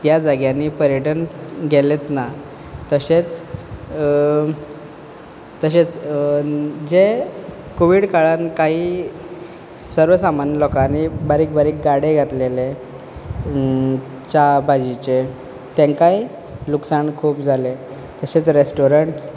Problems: background sounds at intervals